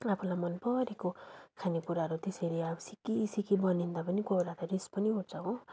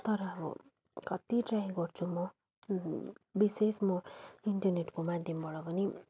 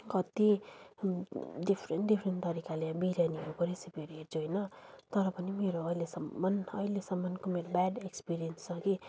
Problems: background sounds at intervals